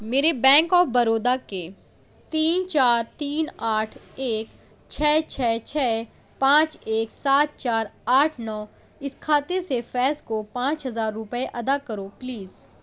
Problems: none marked